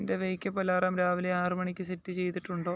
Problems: background sounds at intervals